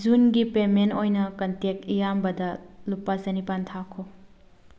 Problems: none marked